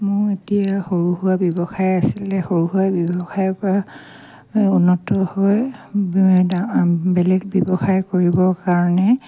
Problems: none marked